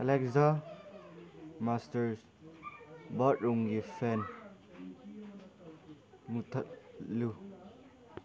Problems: background sounds at intervals